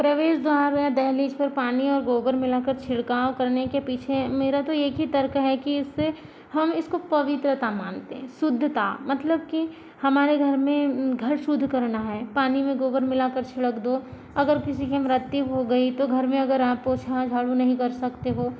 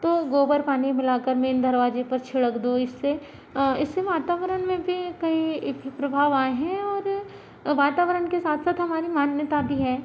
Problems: constant background noise